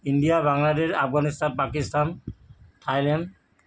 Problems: none marked